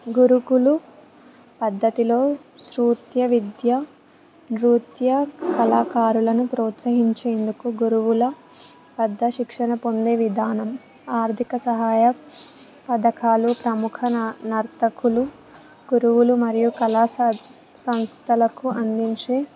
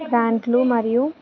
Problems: background sounds at intervals, background conversations at intervals